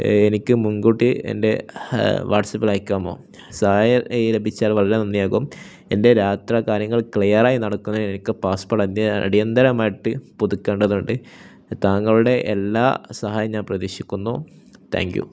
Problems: none marked